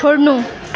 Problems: continuous background conversations